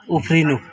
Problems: background sounds at intervals